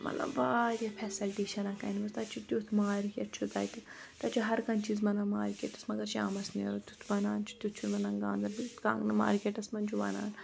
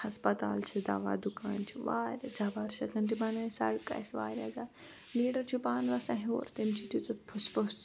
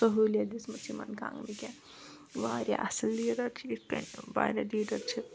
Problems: constant background noise